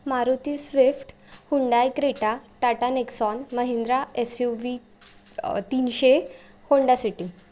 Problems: background sounds at intervals